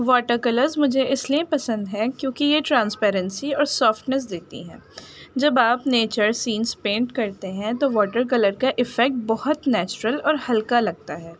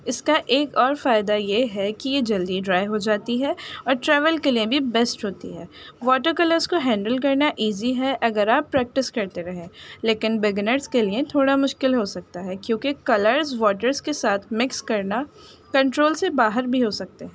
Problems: constant background noise